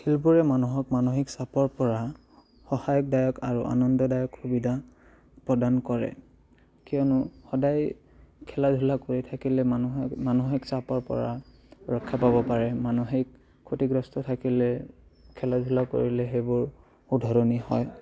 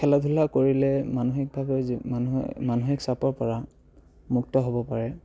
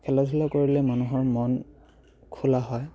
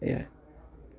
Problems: background sounds at intervals, background conversations at intervals